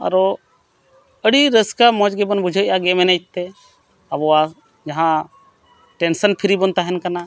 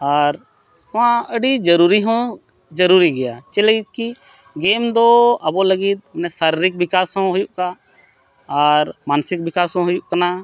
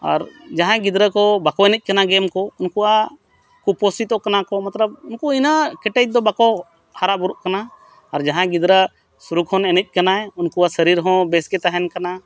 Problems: constant background noise